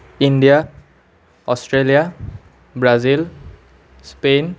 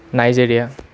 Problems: constant background noise